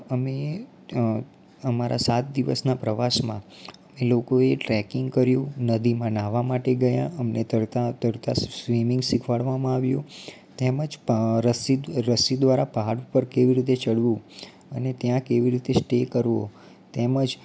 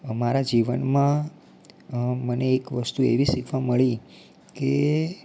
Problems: low volume